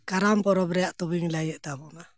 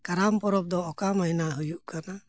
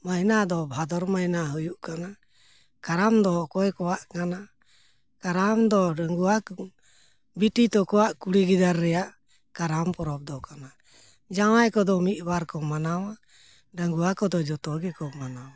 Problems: background sounds at intervals